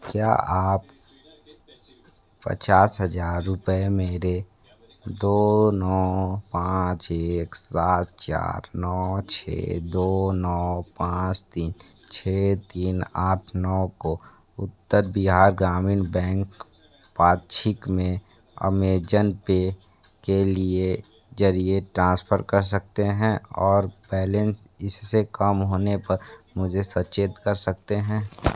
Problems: background sounds at intervals